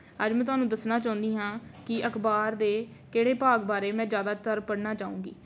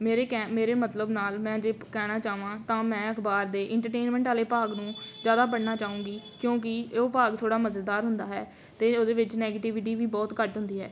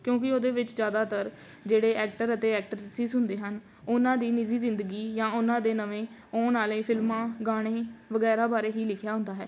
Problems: none marked